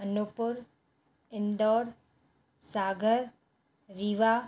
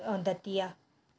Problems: constant background noise